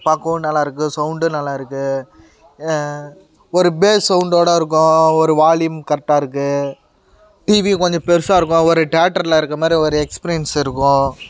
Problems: constant background noise